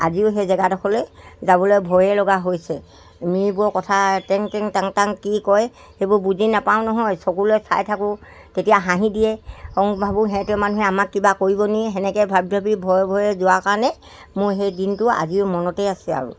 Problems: background sounds at intervals